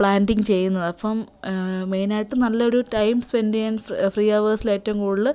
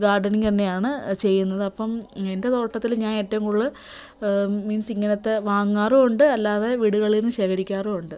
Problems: constant background noise